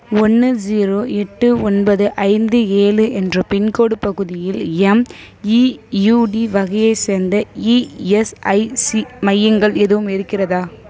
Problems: background sounds at intervals